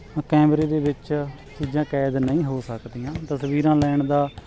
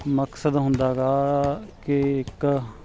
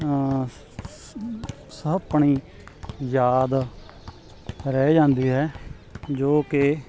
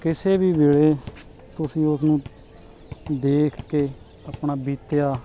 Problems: continuous background conversations